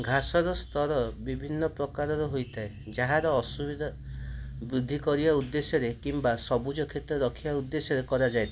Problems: constant background noise, background conversations at intervals